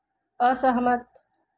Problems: constant background noise